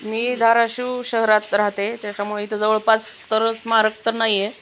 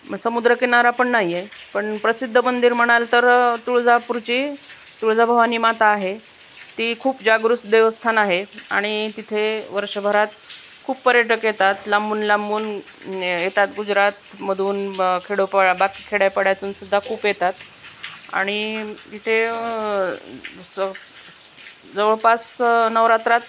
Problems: none marked